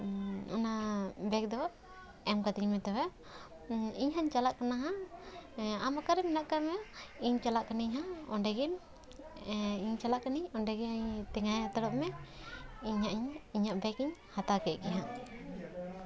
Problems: continuous background conversations